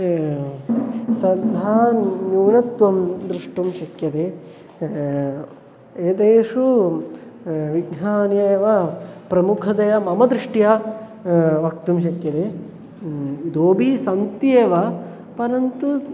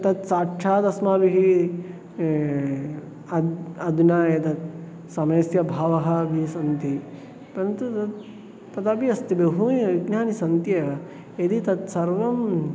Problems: background sounds at intervals